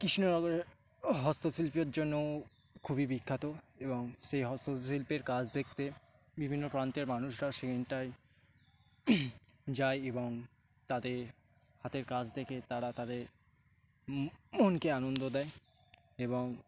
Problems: constant background noise